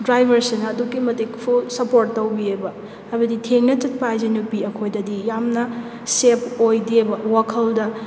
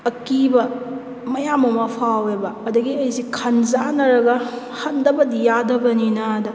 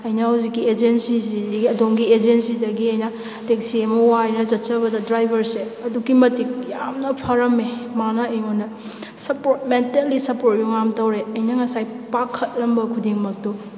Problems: none marked